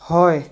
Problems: constant background noise